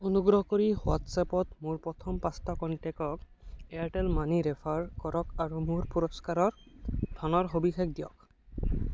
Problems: none marked